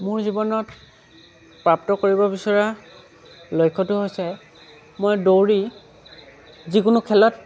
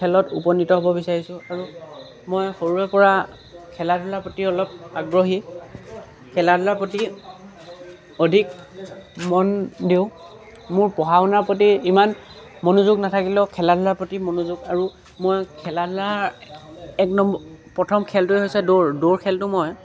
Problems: constant background noise